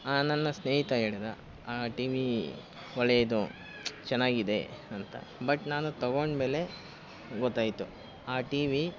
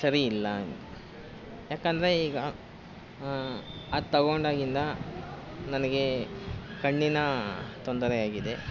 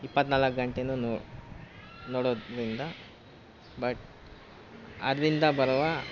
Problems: constant background noise